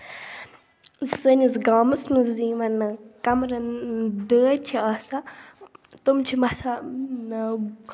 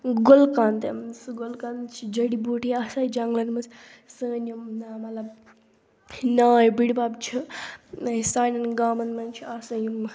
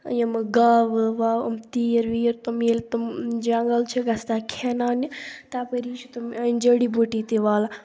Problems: low volume